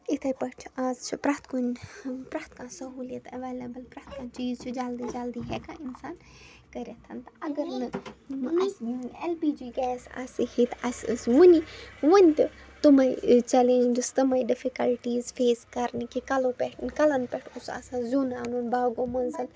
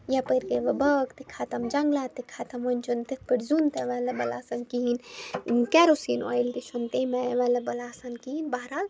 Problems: background sounds at intervals, background conversations at intervals